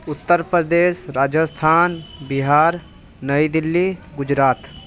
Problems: constant background noise, background conversations at intervals